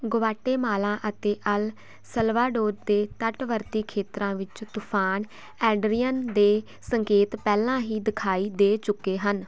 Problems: constant background noise